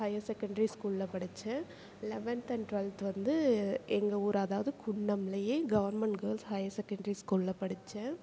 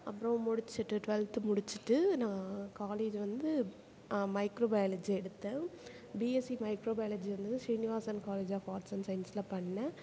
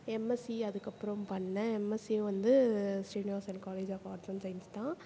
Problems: background conversations at intervals